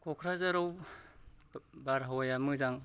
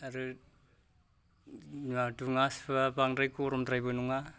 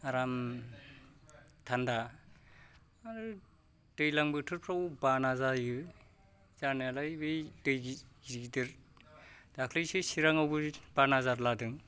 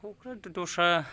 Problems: low volume